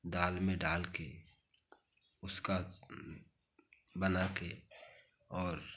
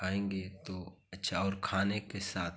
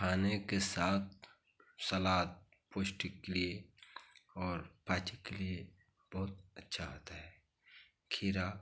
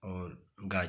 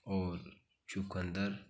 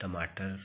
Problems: none marked